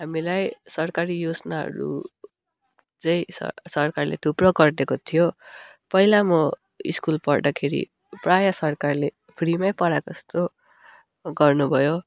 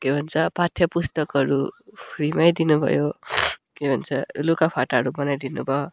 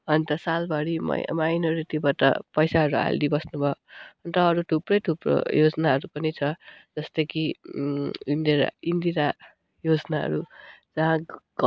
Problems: none marked